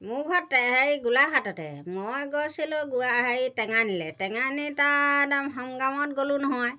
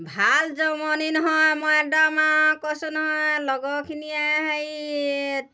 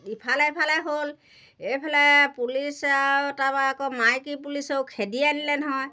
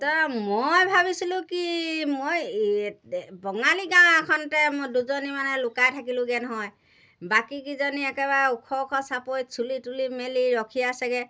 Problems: none marked